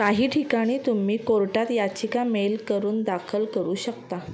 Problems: none marked